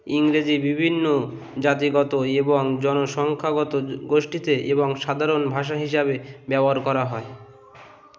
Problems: constant background noise